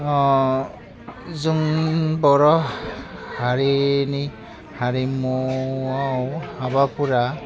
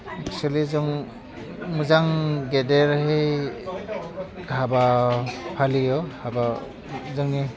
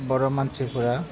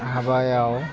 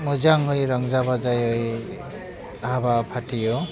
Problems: constant background noise, background conversations at intervals, low volume